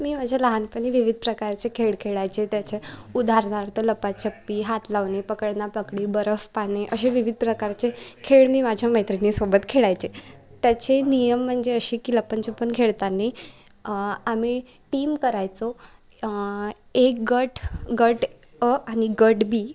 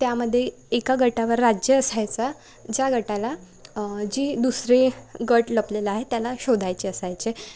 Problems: none marked